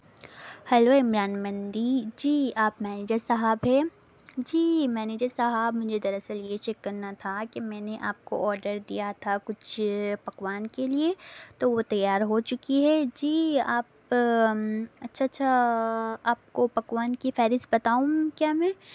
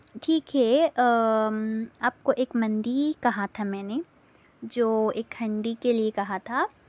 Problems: constant background noise